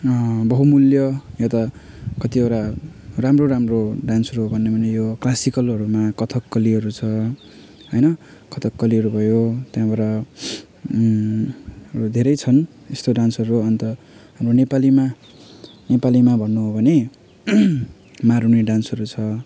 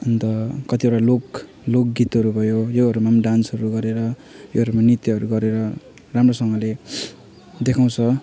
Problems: background sounds at intervals